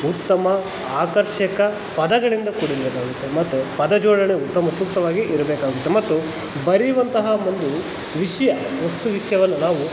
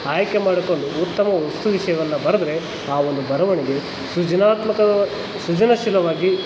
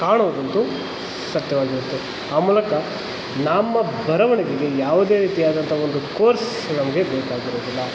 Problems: constant background noise